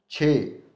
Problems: none marked